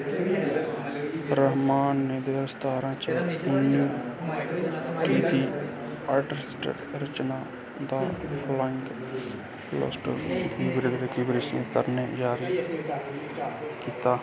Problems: constant background noise, background conversations at intervals